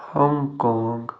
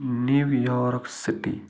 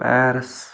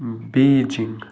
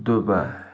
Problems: constant background noise